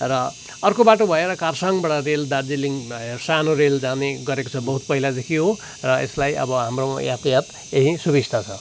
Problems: constant background noise